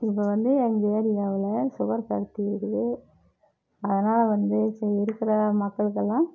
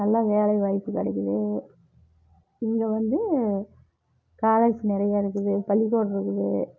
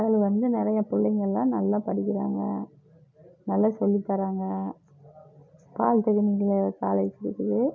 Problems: low volume